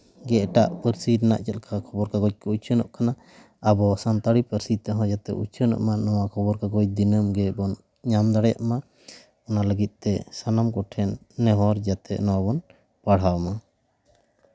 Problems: background sounds at intervals